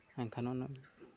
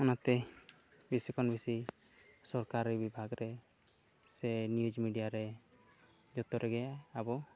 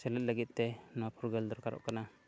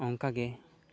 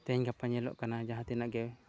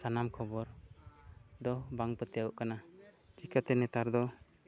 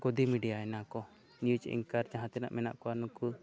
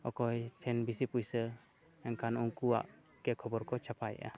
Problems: background sounds at intervals